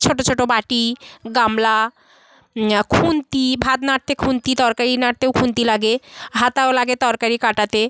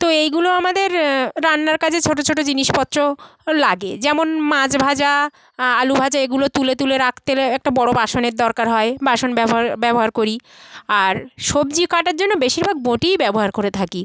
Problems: continuous background conversations